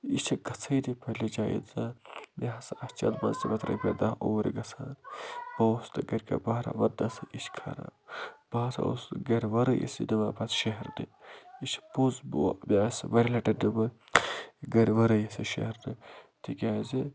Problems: constant background noise